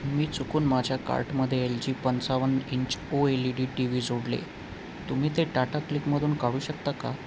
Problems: constant background noise